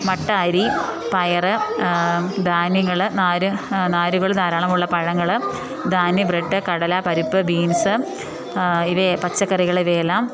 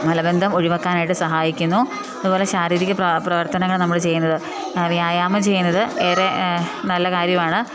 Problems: background sounds at intervals